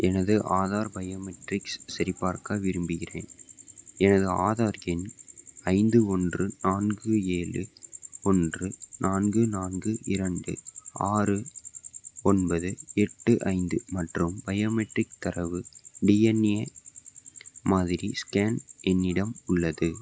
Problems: background sounds at intervals